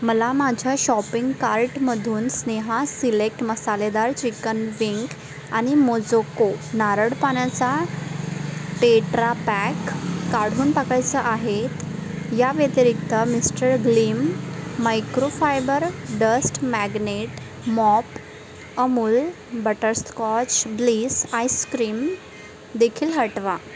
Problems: constant background noise, background conversations at intervals